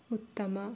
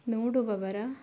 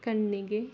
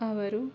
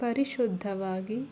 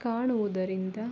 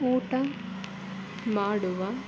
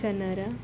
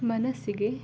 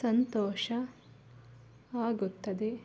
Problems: none marked